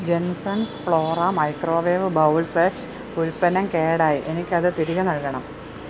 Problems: none marked